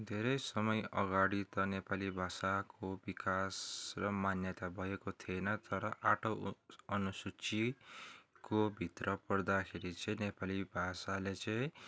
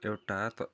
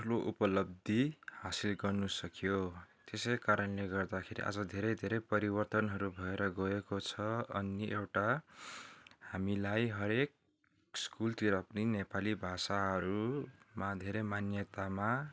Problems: background sounds at intervals